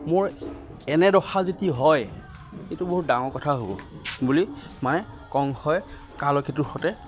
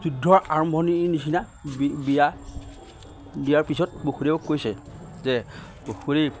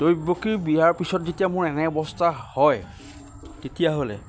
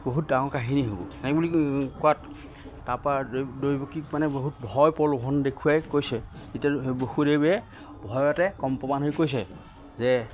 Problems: constant background noise